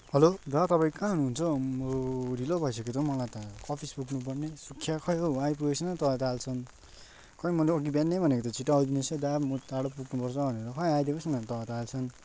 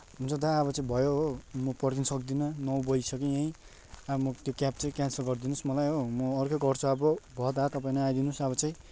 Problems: constant background noise